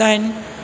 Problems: none marked